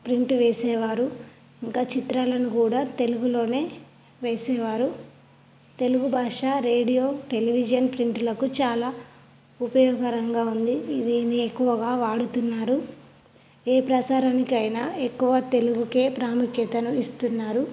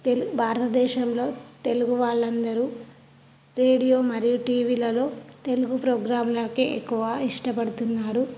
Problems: none marked